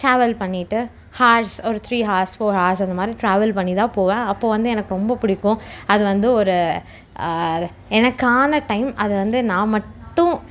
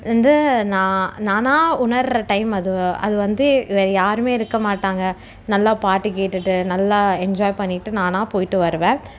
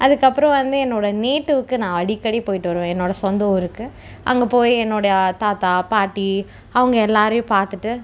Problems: none marked